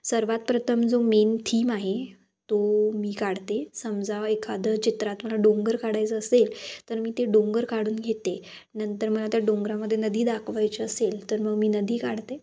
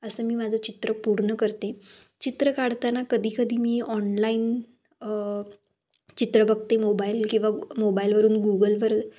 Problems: background sounds at intervals